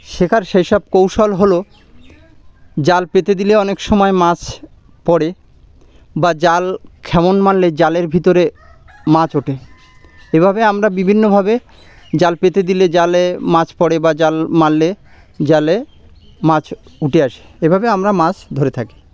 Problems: none marked